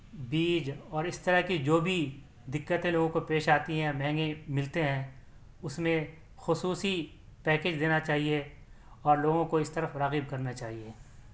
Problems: none marked